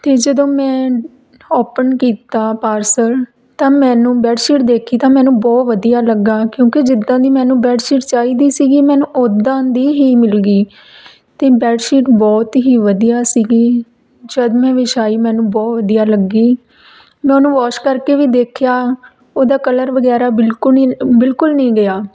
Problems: background conversations at intervals